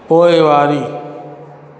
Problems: constant background noise, echo